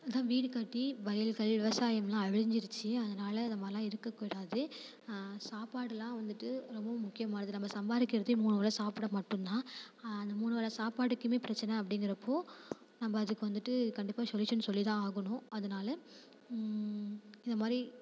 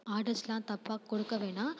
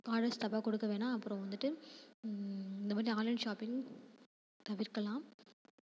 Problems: constant background noise, background conversations at intervals